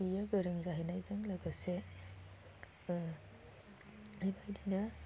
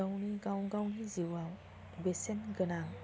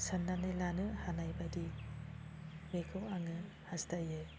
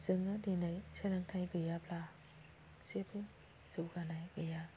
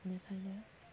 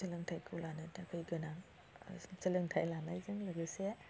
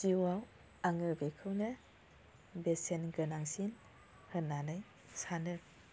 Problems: low volume